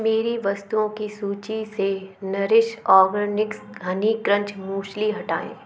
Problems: background sounds at intervals